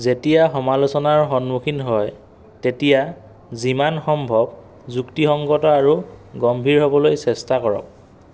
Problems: none marked